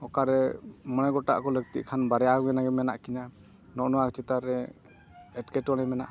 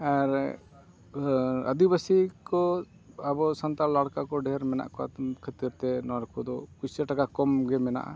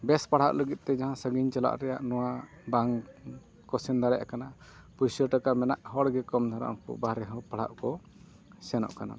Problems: constant background noise